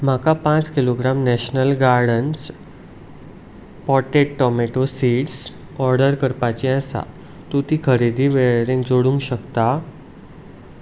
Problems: background sounds at intervals